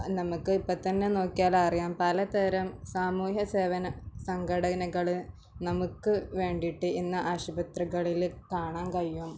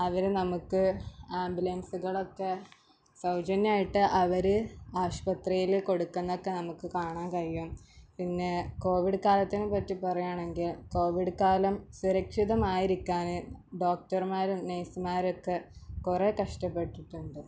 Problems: background sounds at intervals